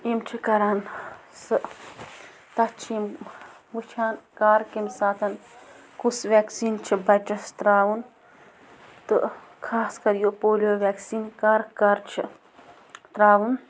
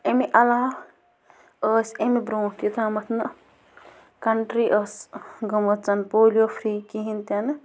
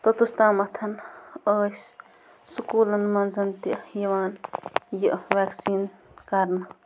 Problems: constant background noise